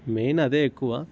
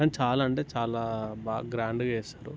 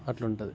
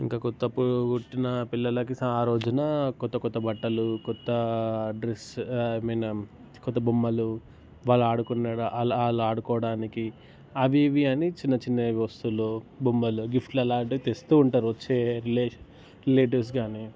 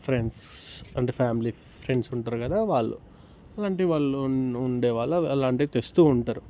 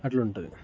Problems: background sounds at intervals